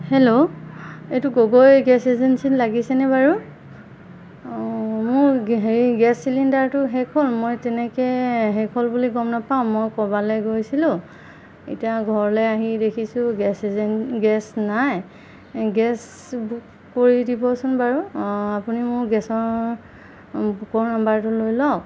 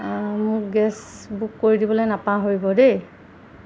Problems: constant background noise